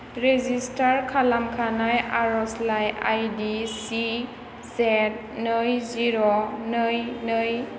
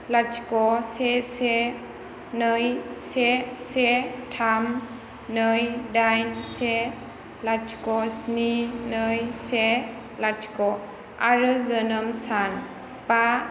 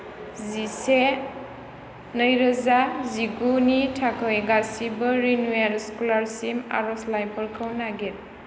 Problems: constant background noise